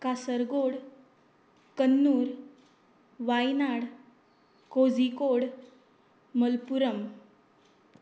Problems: constant background noise